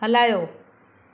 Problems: none marked